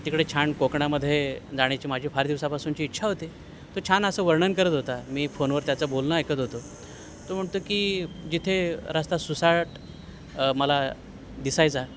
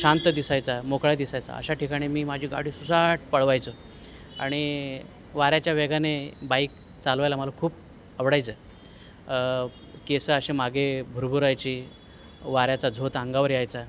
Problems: none marked